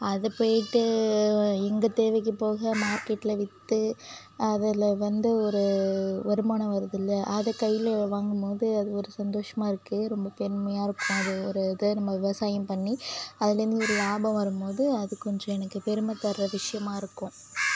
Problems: constant background noise